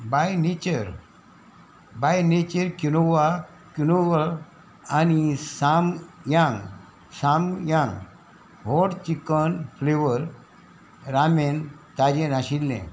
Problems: none marked